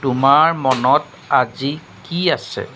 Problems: constant background noise